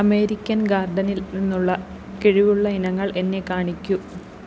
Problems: constant background noise